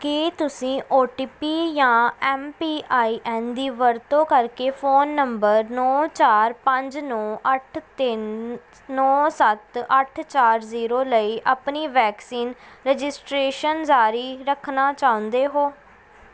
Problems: background sounds at intervals